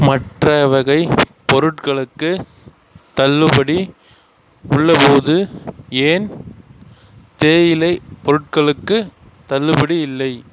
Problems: constant background noise